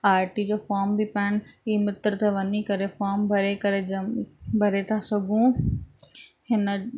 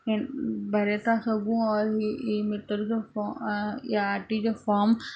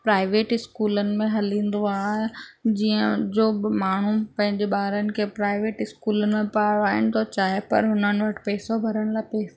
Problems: constant background noise